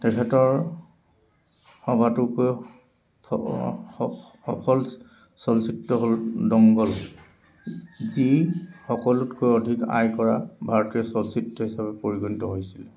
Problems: constant background noise